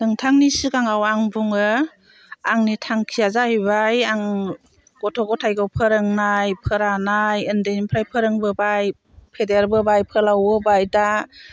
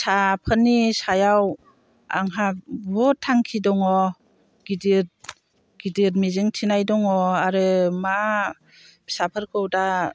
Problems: constant background noise